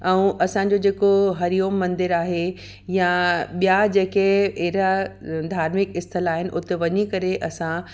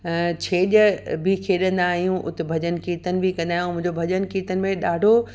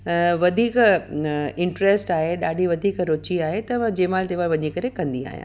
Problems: none marked